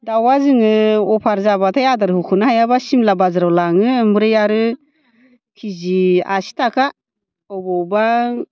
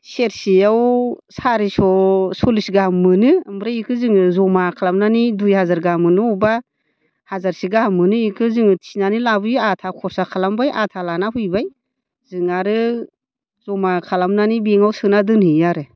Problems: none marked